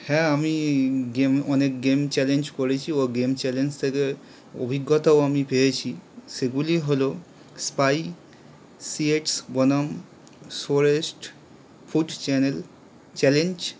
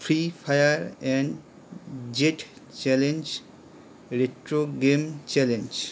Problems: none marked